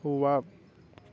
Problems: none marked